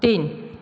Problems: none marked